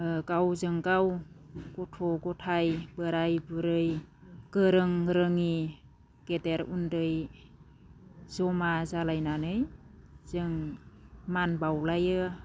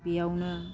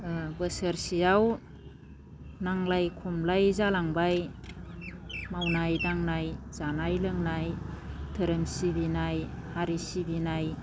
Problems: none marked